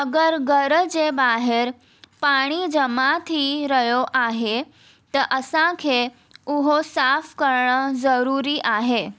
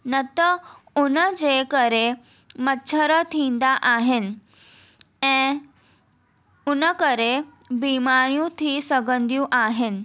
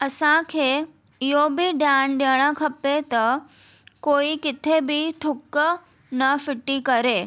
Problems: none marked